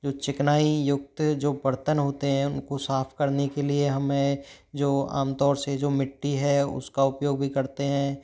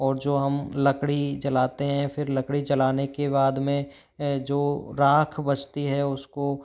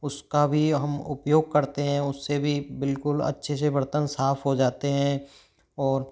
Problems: background sounds at intervals